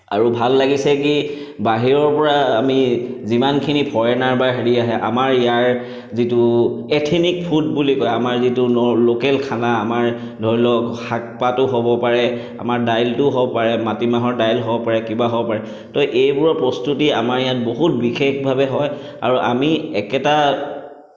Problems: none marked